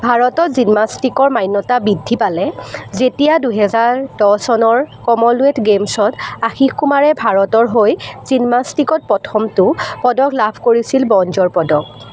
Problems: none marked